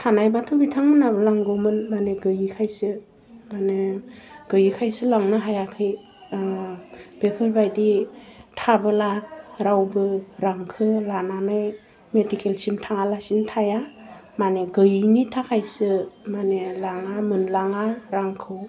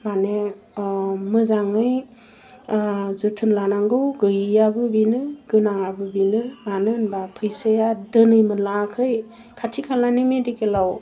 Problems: none marked